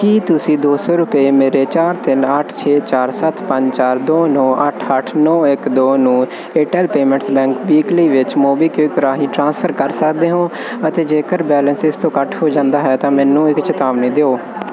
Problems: constant background noise